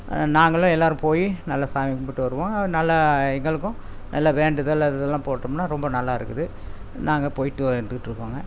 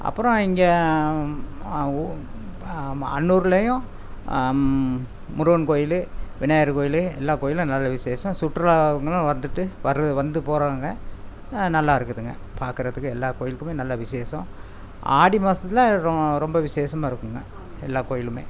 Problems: constant background noise